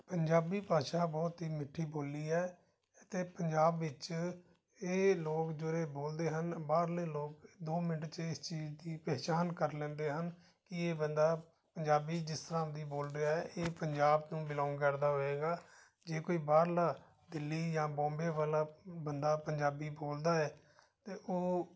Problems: background conversations at intervals